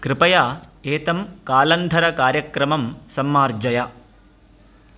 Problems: none marked